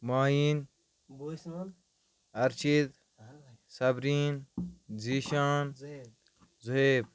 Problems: background sounds at intervals, background conversations at intervals